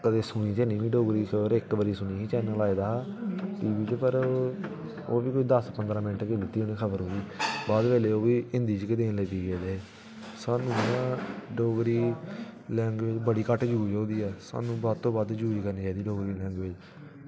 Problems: background sounds at intervals